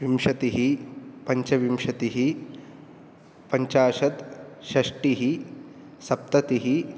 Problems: none marked